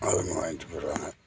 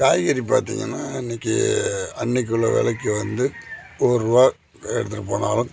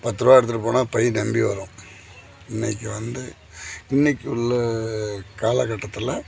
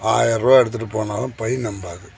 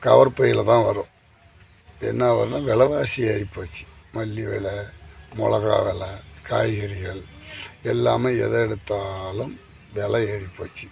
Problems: constant background noise